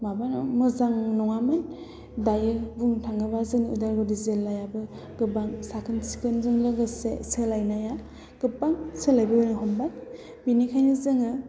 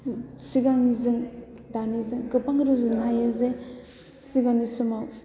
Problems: low volume